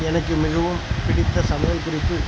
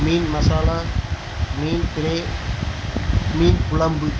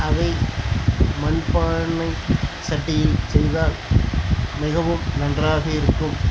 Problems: constant background noise